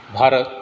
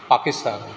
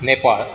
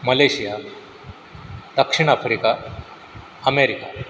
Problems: constant background noise